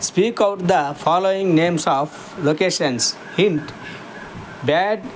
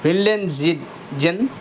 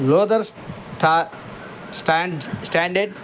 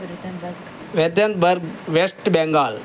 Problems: constant background noise